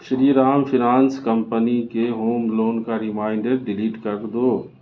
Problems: constant background noise